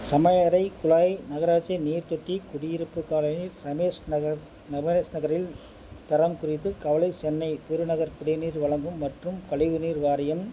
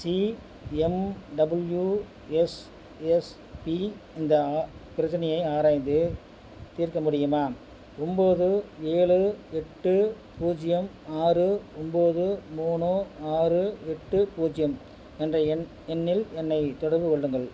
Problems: background sounds at intervals